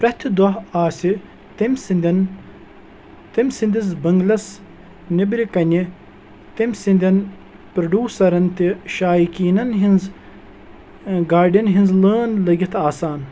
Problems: background sounds at intervals